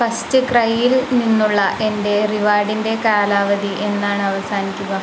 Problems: constant background noise